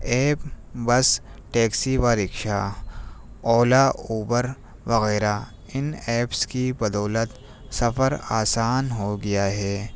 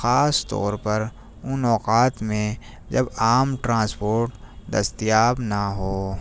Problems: none marked